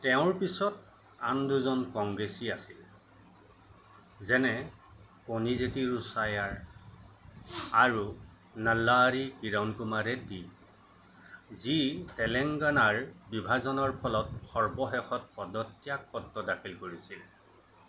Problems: constant background noise